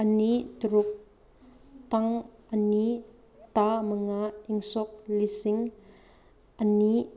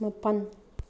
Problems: background sounds at intervals